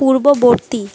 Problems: constant background noise